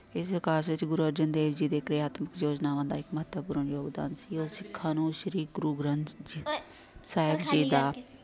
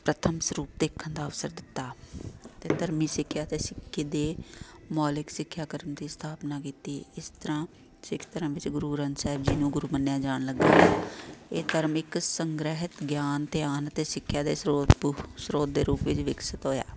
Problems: constant background noise, background conversations at intervals